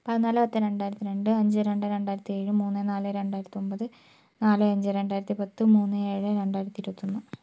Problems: none marked